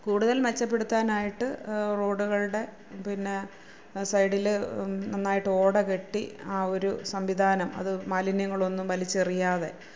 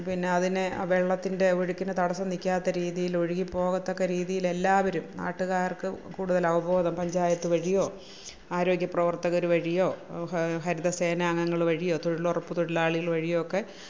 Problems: none marked